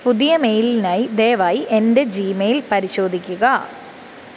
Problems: constant background noise